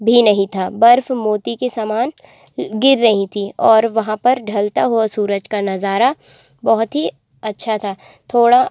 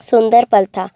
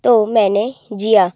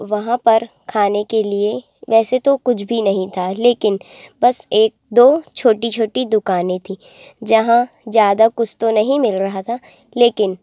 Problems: constant background noise